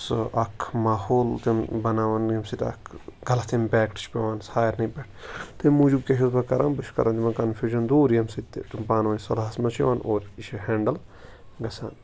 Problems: none marked